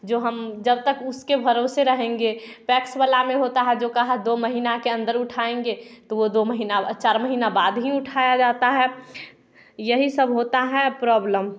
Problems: background sounds at intervals, background conversations at intervals